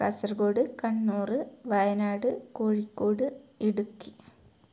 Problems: low volume